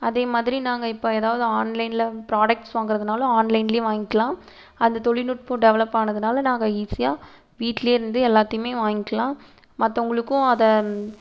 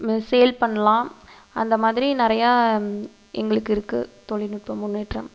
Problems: constant background noise